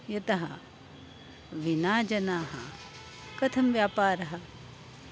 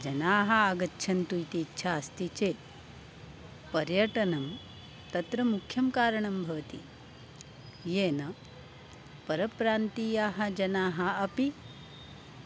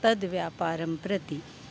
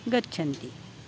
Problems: constant background noise